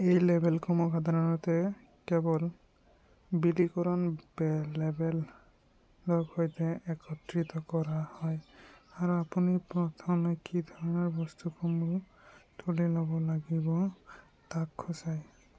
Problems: background sounds at intervals, low volume